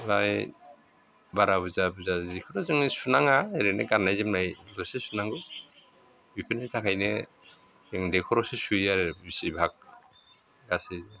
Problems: constant background noise